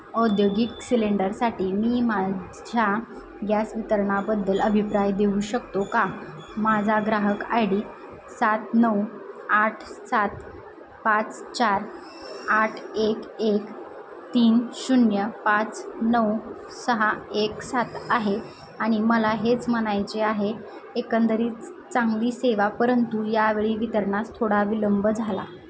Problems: constant background noise